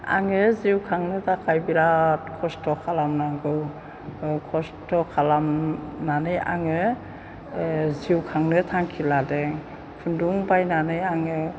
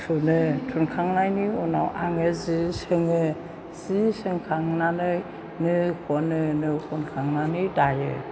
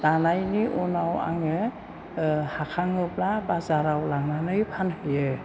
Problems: background sounds at intervals